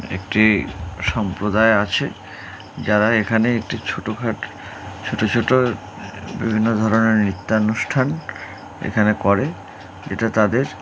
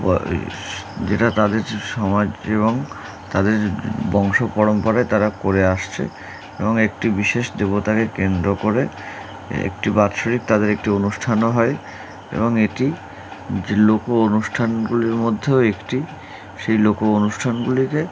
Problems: none marked